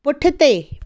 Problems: none marked